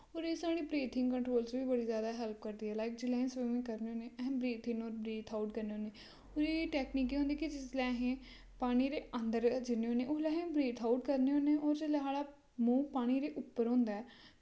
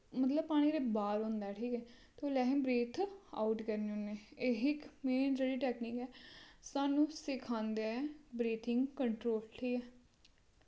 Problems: constant background noise